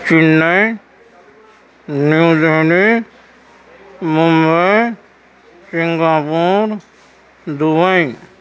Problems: constant background noise